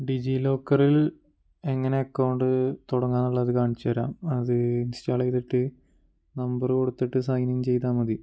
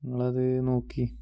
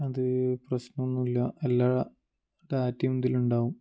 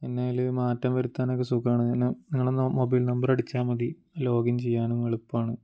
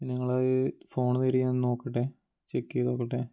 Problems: low volume